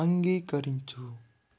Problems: none marked